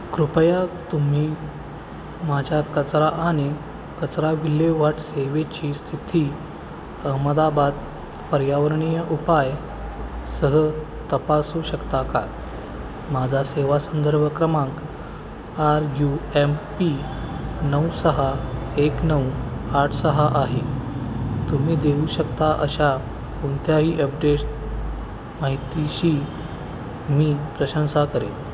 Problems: constant background noise